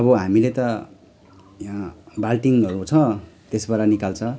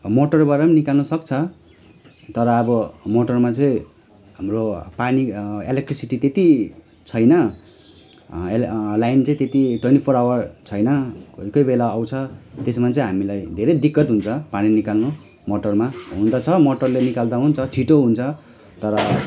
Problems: constant background noise